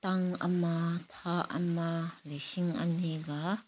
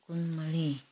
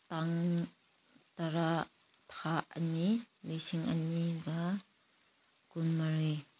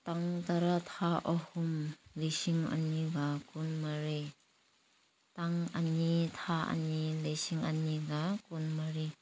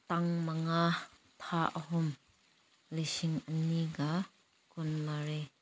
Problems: background sounds at intervals